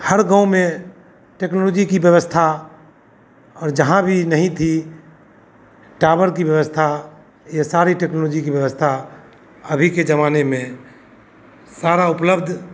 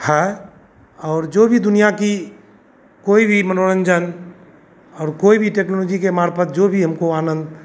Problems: none marked